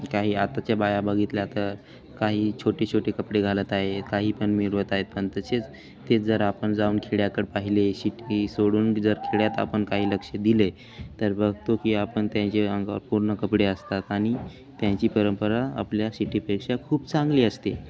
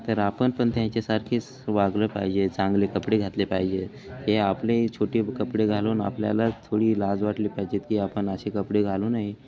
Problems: constant background noise